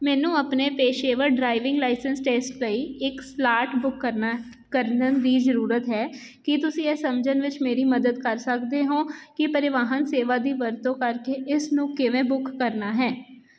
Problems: constant background noise